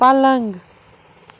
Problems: constant background noise